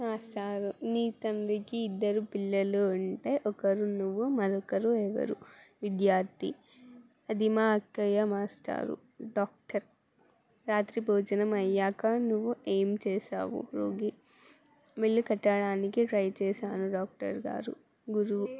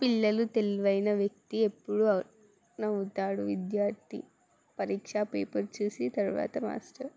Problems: background sounds at intervals, background conversations at intervals